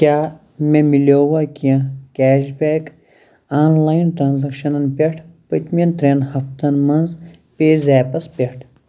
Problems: background sounds at intervals